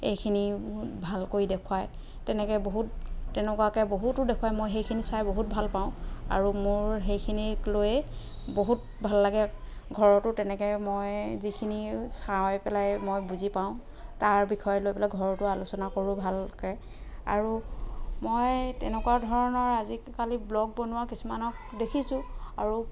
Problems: background sounds at intervals, background conversations at intervals